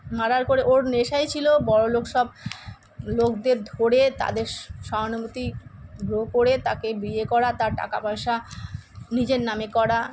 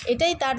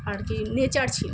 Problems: constant background noise